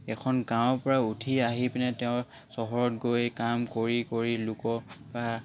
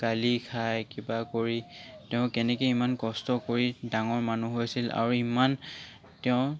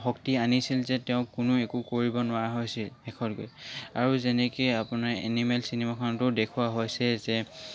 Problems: background sounds at intervals